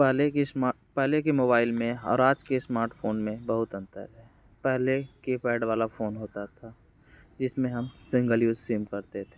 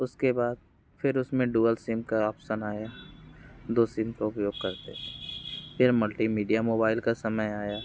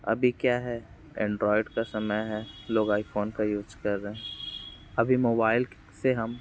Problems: constant background noise